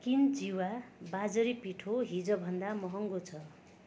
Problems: constant background noise